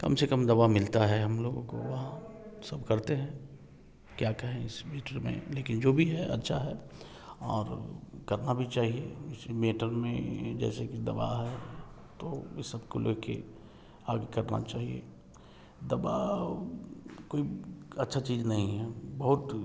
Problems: background sounds at intervals